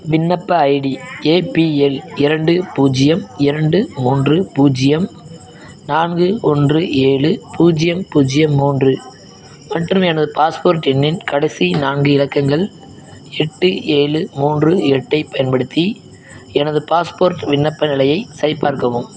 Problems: background sounds at intervals